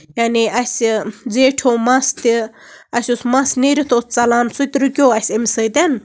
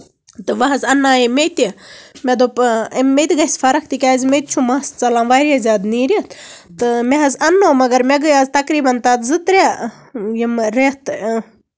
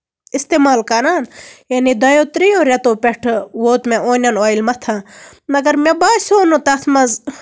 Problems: constant background noise